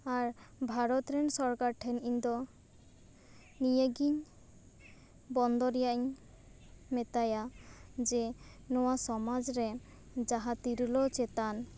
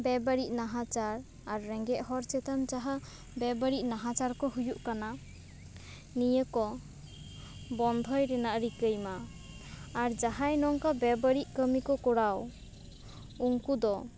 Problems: none marked